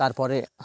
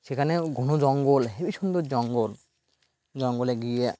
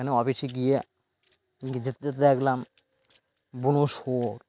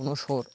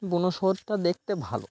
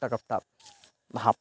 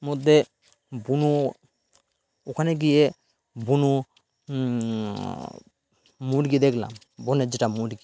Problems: constant background noise